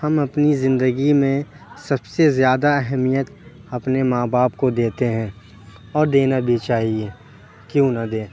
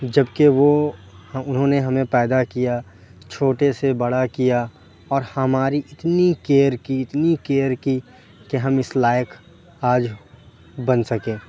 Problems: constant background noise